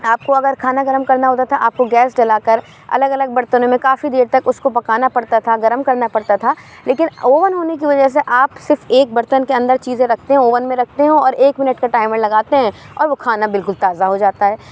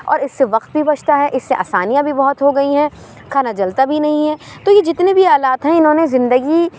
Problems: none marked